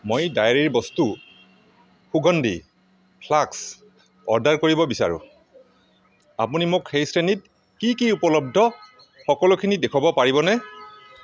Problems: constant background noise